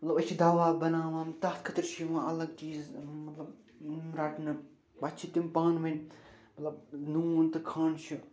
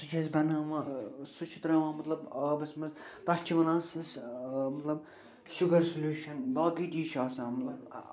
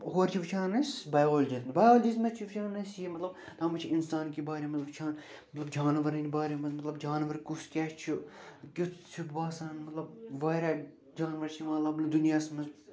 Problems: none marked